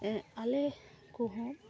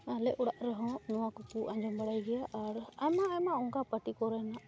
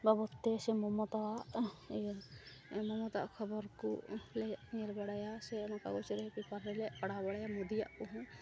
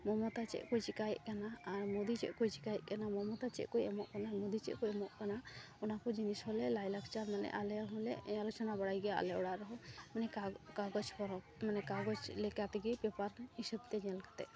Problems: constant background noise, background conversations at intervals